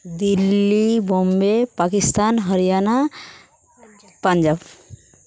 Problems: background sounds at intervals, background conversations at intervals